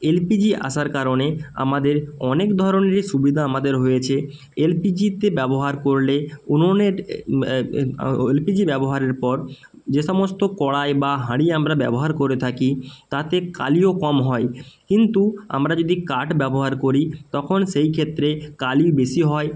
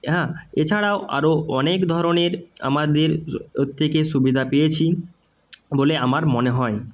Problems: constant background noise